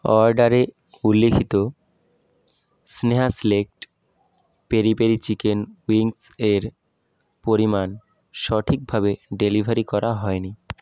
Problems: none marked